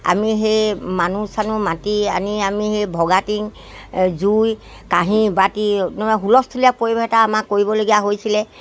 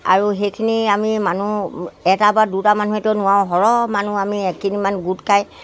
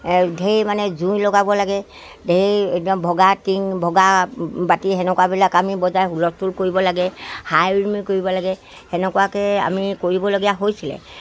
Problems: background sounds at intervals